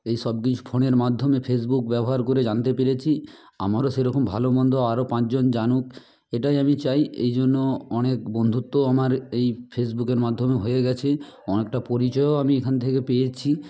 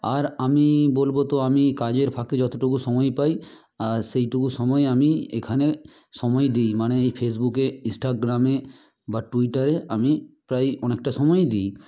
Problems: constant background noise